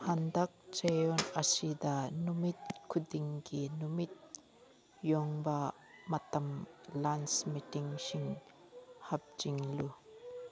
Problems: background sounds at intervals